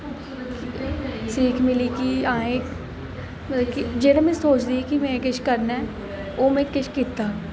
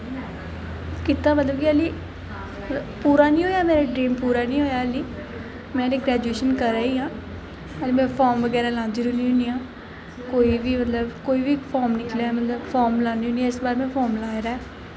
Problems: constant background noise, echo